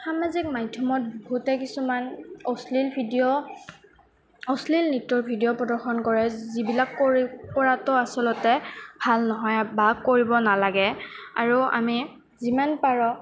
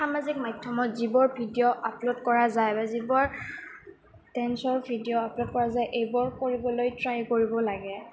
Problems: background sounds at intervals